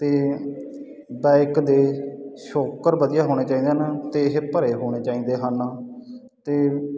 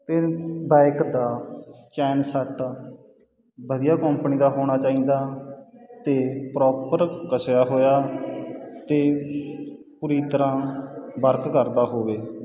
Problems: background sounds at intervals